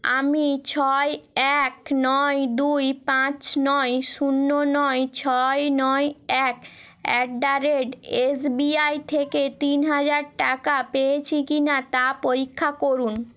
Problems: none marked